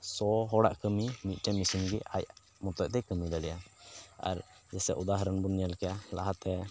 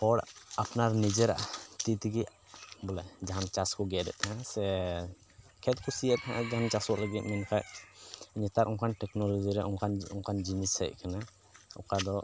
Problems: background sounds at intervals